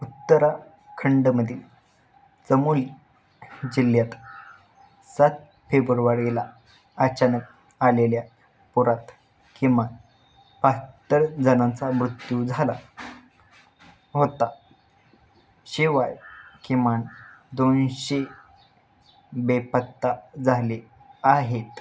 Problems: constant background noise